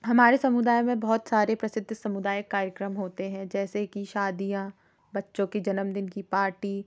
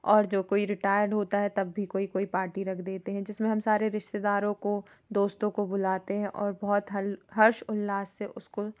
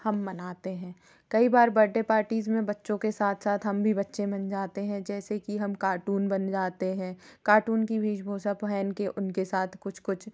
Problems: background sounds at intervals